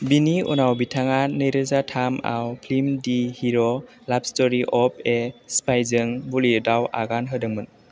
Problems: constant background noise